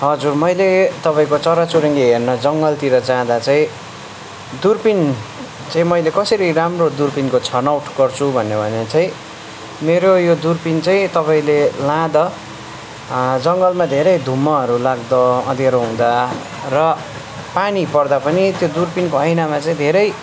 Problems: constant background noise